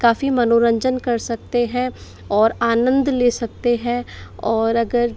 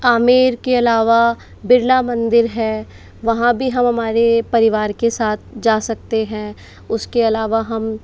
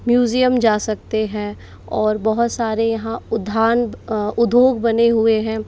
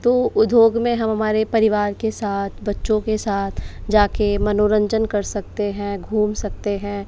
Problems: background sounds at intervals